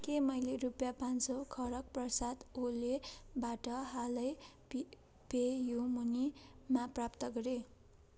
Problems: none marked